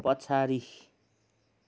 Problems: background sounds at intervals